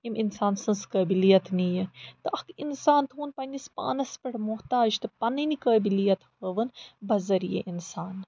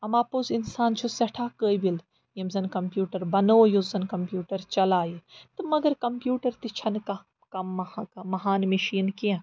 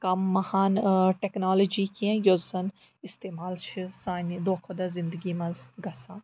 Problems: background sounds at intervals